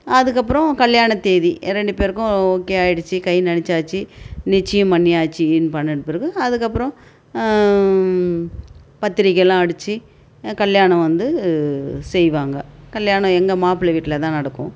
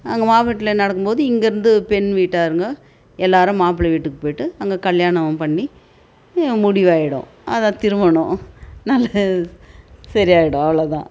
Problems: none marked